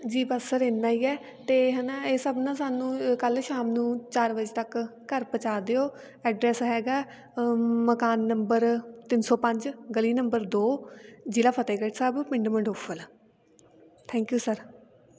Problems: background sounds at intervals, continuous background conversations